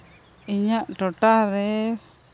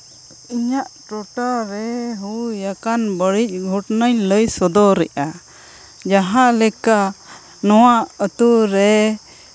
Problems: background sounds at intervals